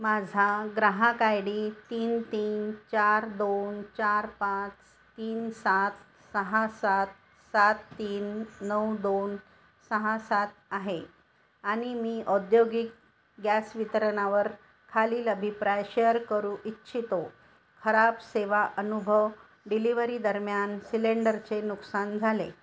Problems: none marked